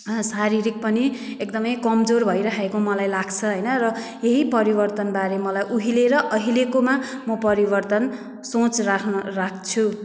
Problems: background sounds at intervals